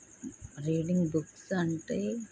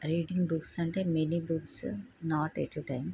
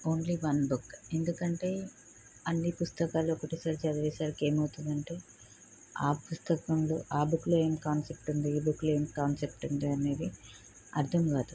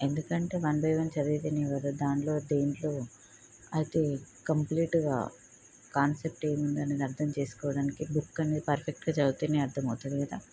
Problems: low volume